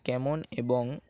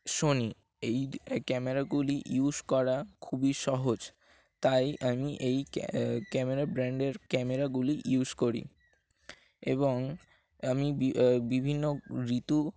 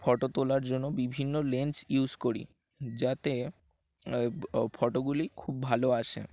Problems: background sounds at intervals